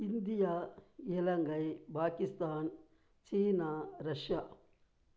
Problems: none marked